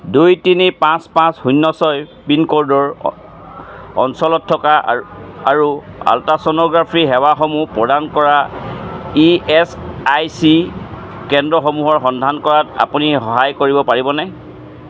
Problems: constant background noise